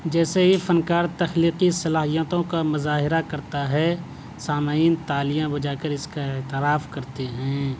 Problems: none marked